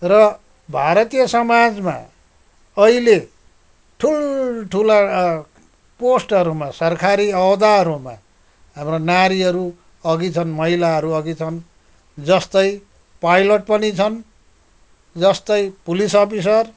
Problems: background sounds at intervals